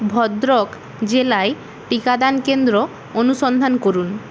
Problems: constant background noise